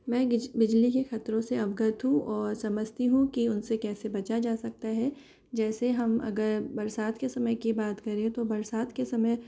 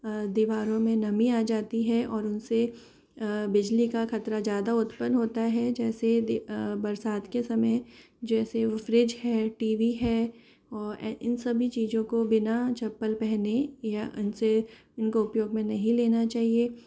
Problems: none marked